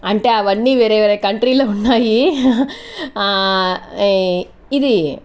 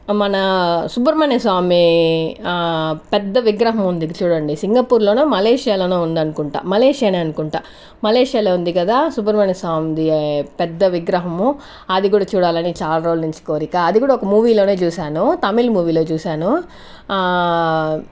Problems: none marked